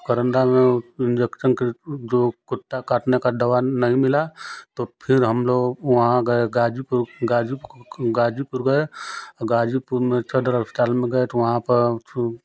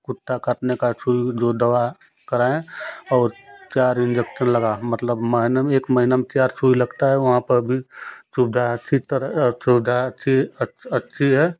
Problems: constant background noise